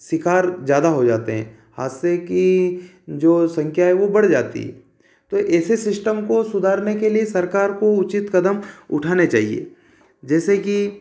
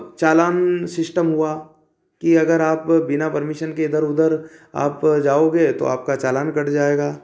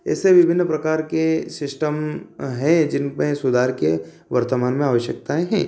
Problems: constant background noise